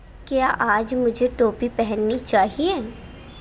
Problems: constant background noise